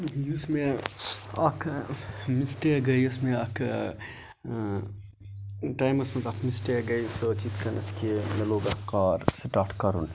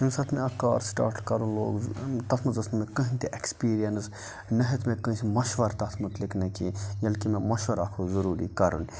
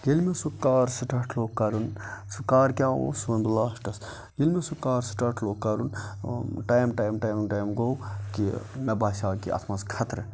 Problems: constant background noise, background conversations at intervals